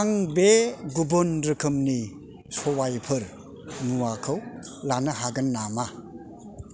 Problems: constant background noise